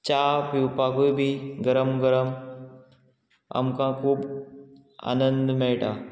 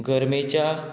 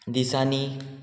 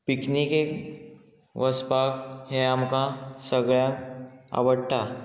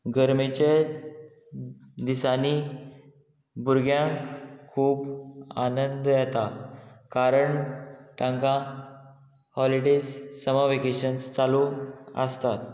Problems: constant background noise